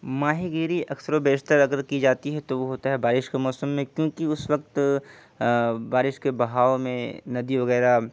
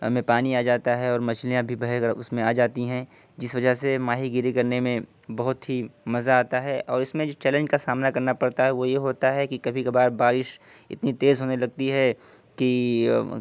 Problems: background sounds at intervals